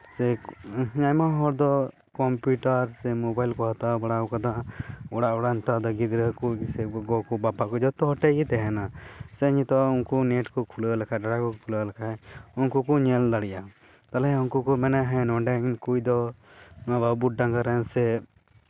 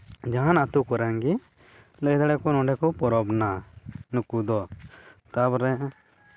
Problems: none marked